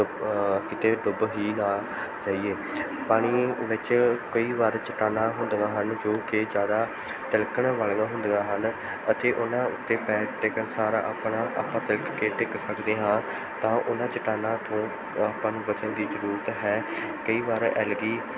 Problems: background sounds at intervals, background conversations at intervals